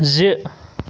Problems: constant background noise